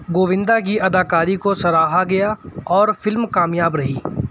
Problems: none marked